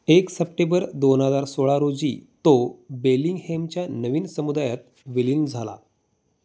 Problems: none marked